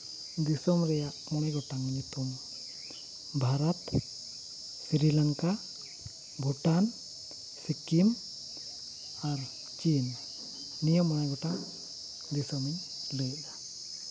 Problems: constant background noise